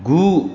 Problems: constant background noise